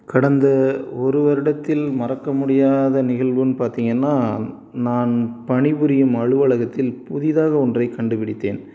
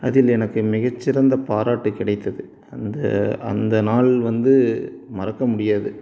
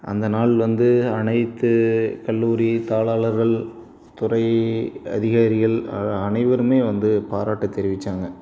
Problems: background sounds at intervals